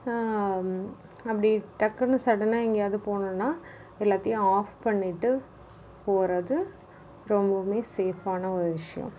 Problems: none marked